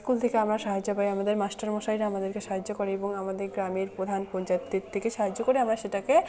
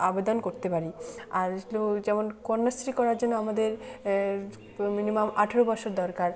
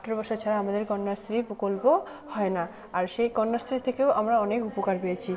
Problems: background sounds at intervals, continuous background conversations